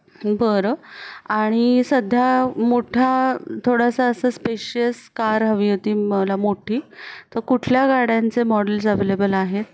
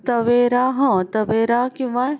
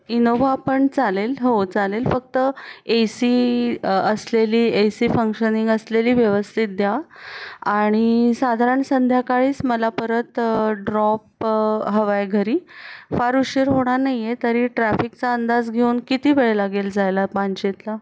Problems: constant background noise